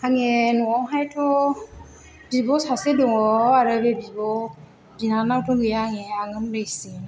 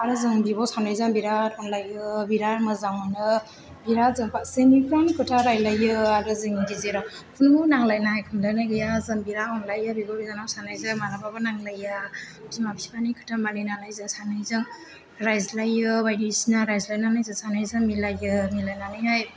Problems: background sounds at intervals